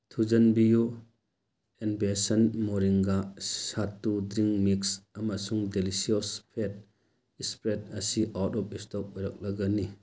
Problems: none marked